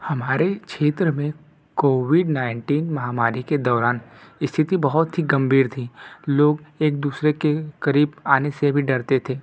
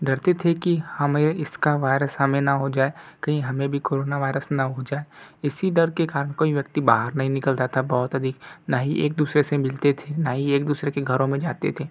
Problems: none marked